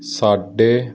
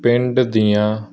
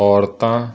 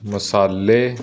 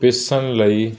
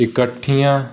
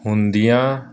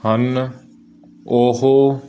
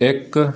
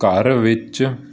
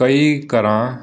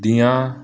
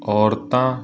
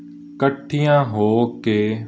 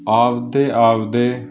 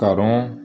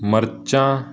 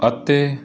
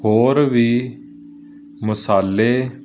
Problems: none marked